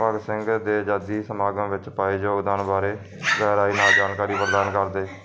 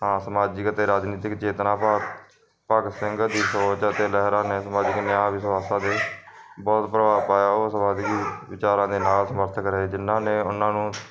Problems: constant background noise